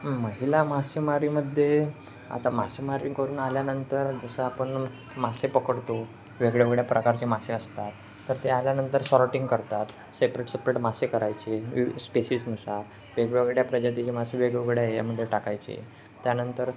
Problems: constant background noise